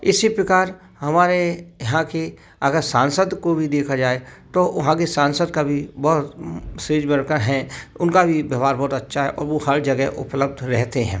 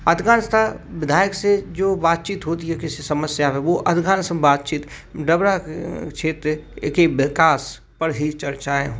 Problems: constant background noise, background conversations at intervals